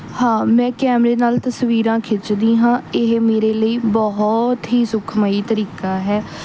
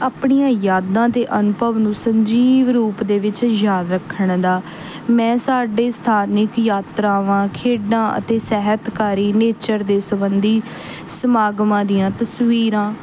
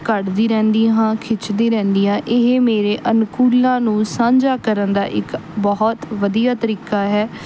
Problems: none marked